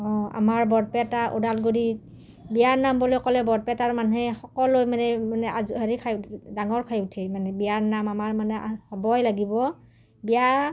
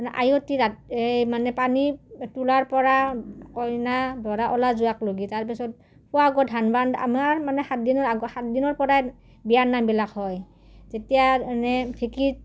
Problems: none marked